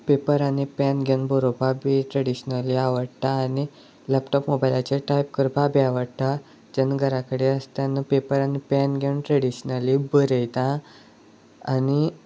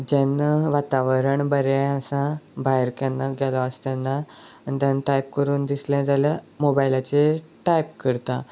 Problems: none marked